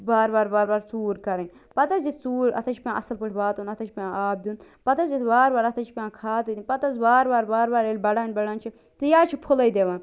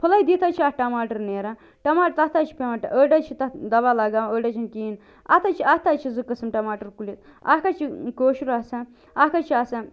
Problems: constant background noise